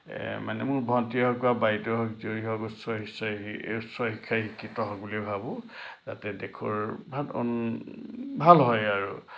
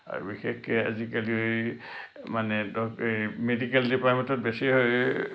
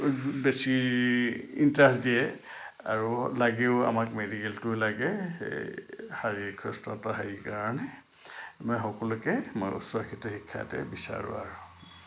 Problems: low volume